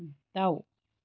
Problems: none marked